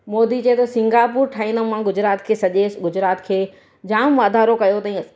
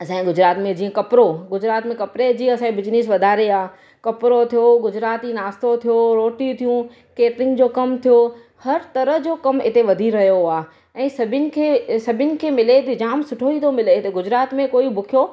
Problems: none marked